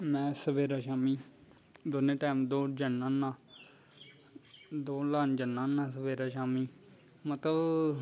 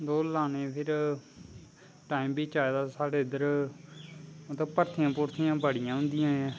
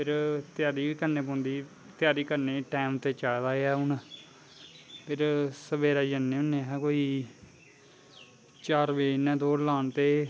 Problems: constant background noise